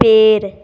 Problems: none marked